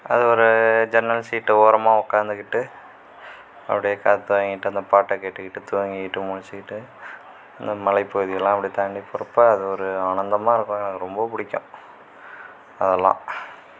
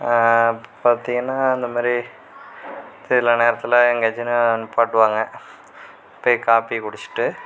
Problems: constant background noise